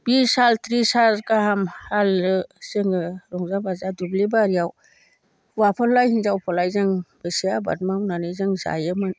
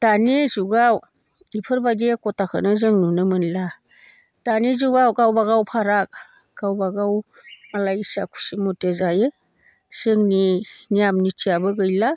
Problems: none marked